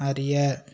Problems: continuous background conversations